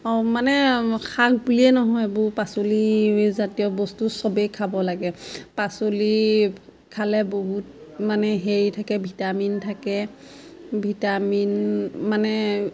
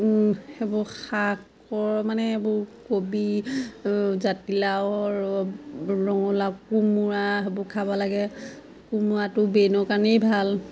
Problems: constant background noise, background conversations at intervals